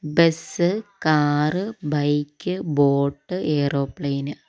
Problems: none marked